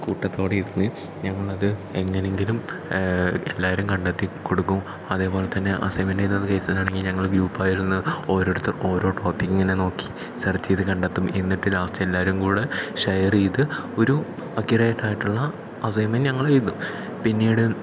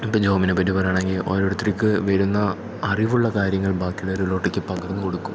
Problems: background sounds at intervals